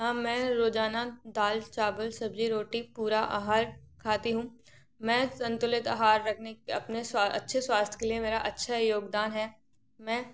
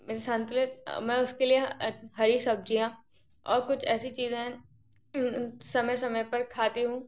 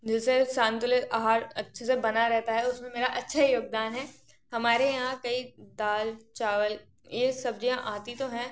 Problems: background sounds at intervals